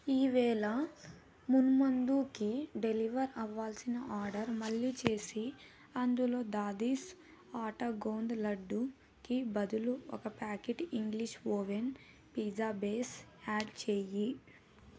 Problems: none marked